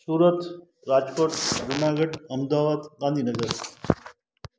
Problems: constant background noise, echo